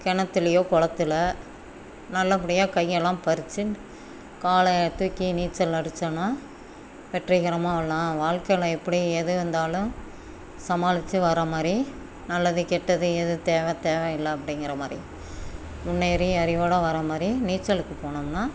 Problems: background sounds at intervals